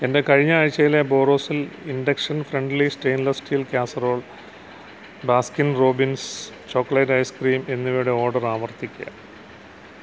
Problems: low volume